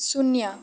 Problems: background sounds at intervals